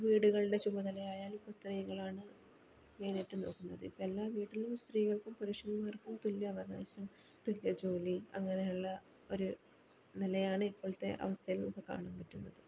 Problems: background sounds at intervals, low volume